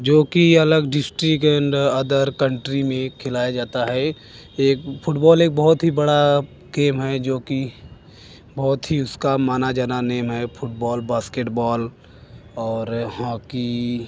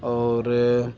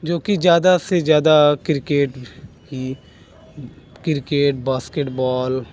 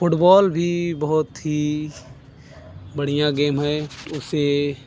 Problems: constant background noise